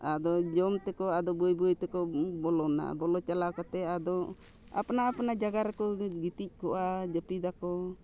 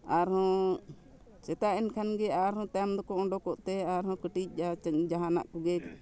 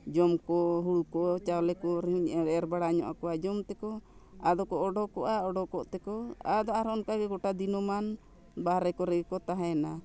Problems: background sounds at intervals